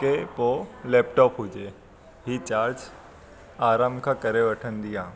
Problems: constant background noise